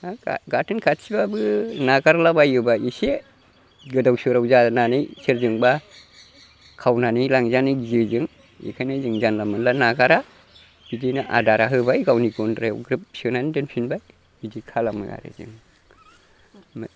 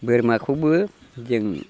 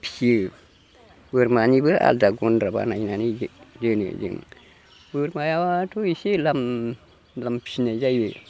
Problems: constant background noise